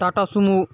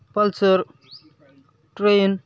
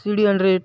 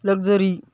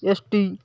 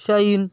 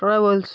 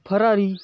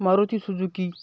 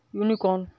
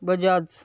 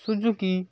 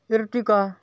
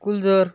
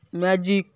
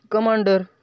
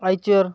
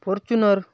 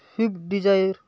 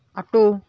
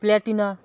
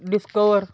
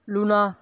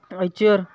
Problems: constant background noise, background conversations at intervals